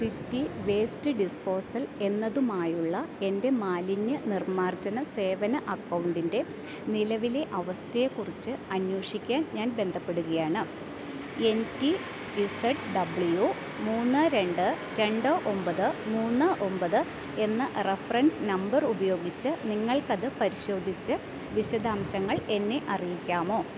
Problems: none marked